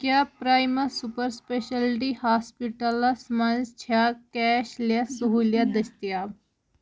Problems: background sounds at intervals